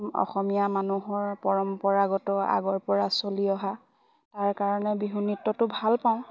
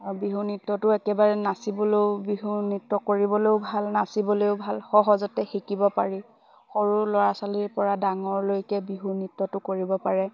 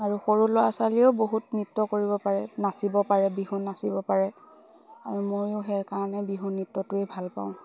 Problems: background sounds at intervals, background conversations at intervals